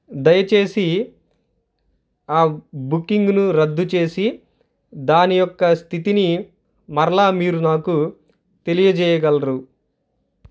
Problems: none marked